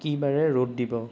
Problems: none marked